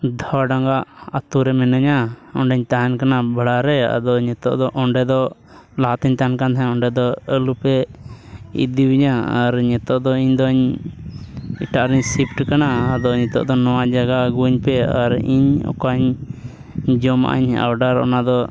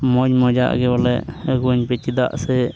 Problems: background sounds at intervals